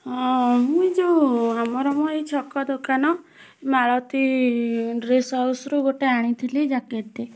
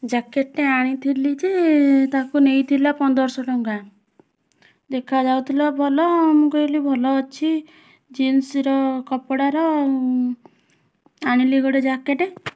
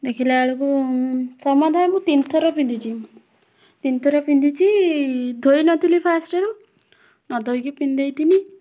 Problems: constant background noise, continuous background conversations